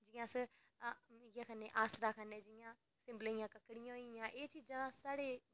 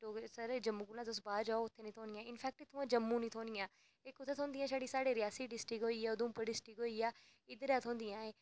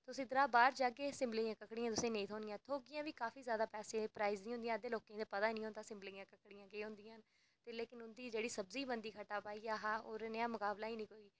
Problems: background sounds at intervals